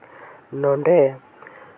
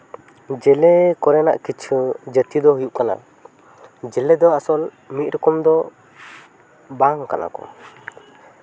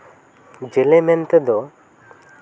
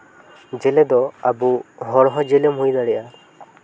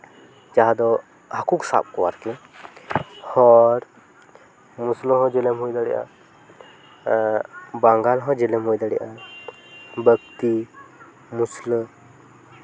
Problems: background sounds at intervals